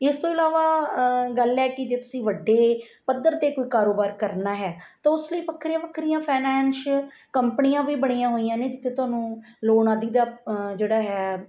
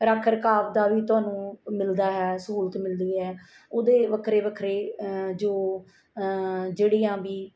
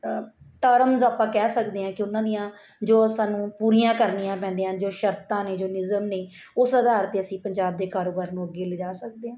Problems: background sounds at intervals